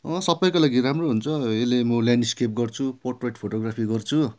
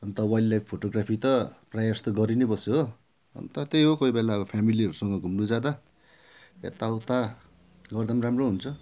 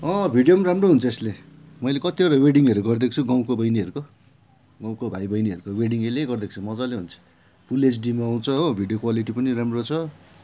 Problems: background sounds at intervals